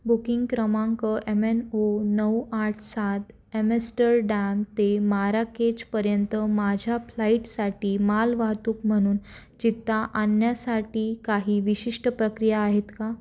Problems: none marked